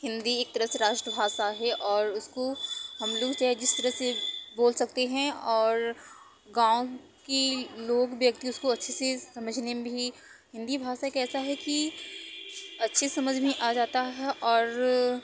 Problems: constant background noise